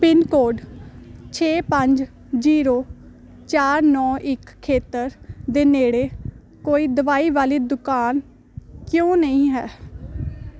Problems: constant background noise